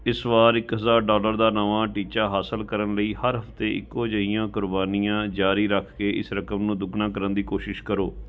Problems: constant background noise